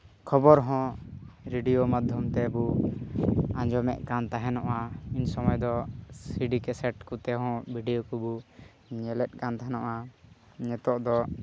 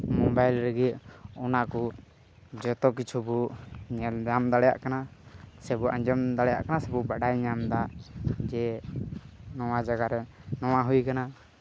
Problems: none marked